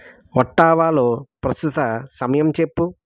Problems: none marked